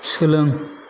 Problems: none marked